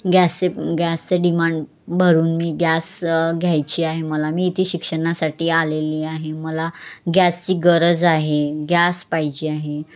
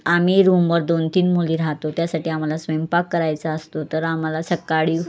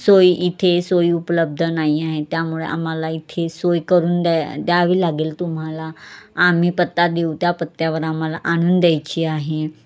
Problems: background sounds at intervals, background conversations at intervals